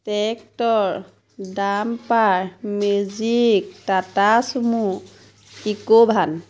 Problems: constant background noise